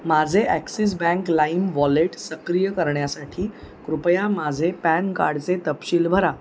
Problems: constant background noise, continuous background conversations